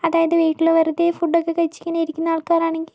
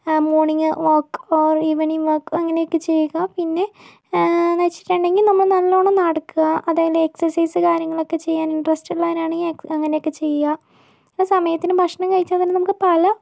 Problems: none marked